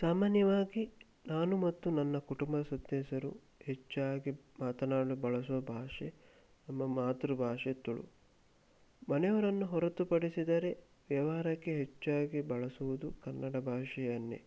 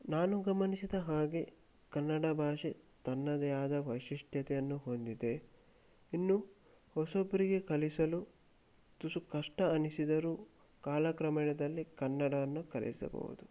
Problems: none marked